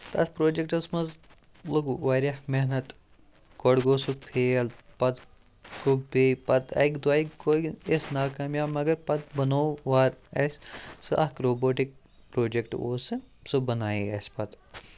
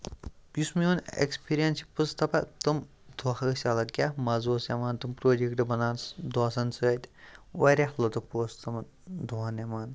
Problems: constant background noise